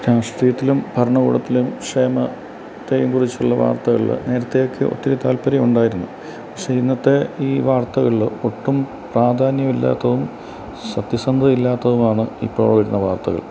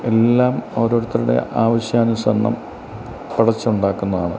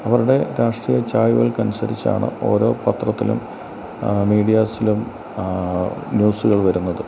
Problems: constant background noise